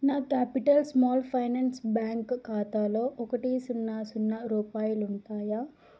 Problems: low volume